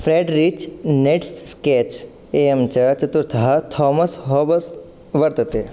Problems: none marked